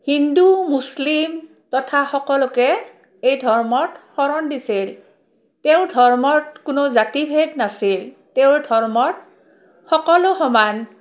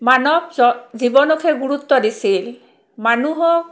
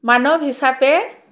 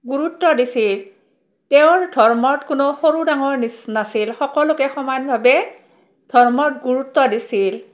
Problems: background sounds at intervals